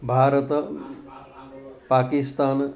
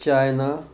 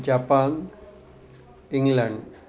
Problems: none marked